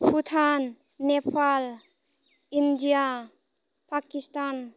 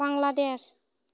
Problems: constant background noise